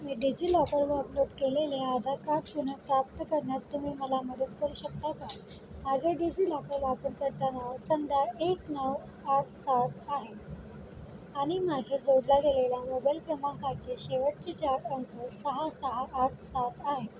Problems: background sounds at intervals